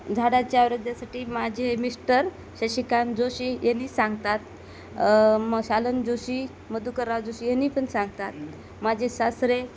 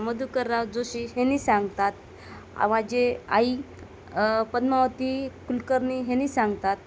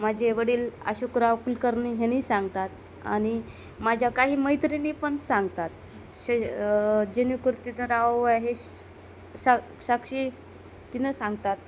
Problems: constant background noise